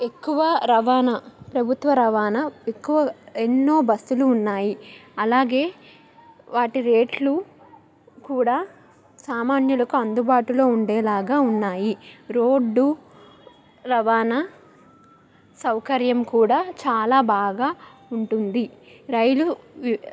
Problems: background conversations at intervals